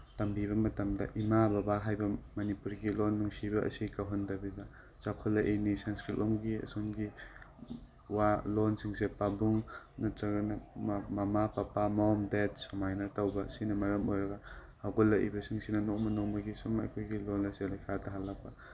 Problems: background sounds at intervals